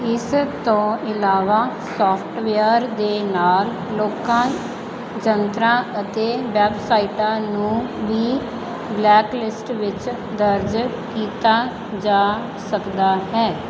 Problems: constant background noise